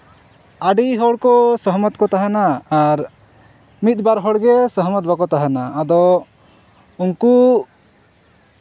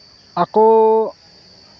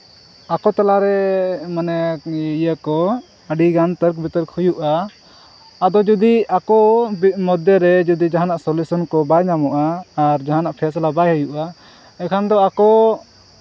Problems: none marked